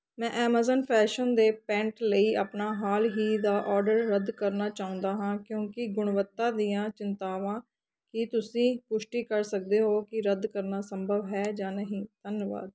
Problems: background conversations at intervals